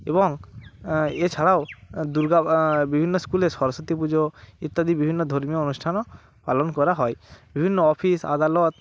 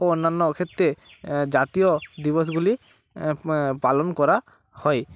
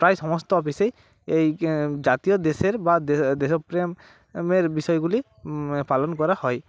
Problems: background sounds at intervals